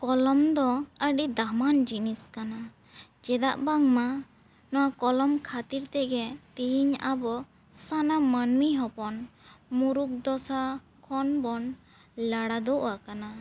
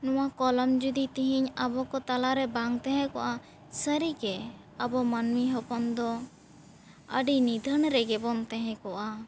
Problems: background sounds at intervals